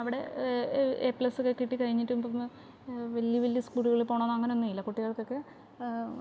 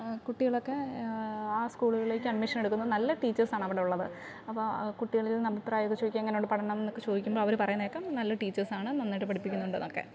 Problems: background sounds at intervals, background conversations at intervals